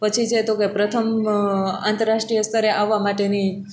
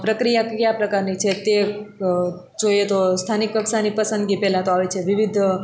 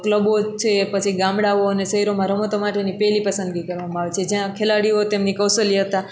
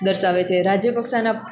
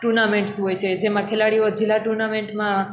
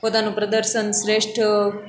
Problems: constant background noise